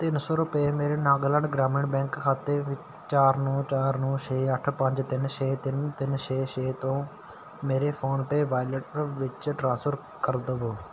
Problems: none marked